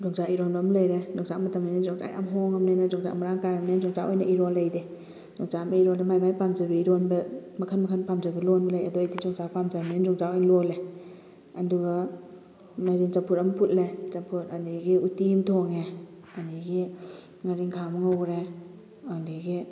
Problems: constant background noise